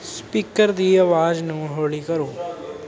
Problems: none marked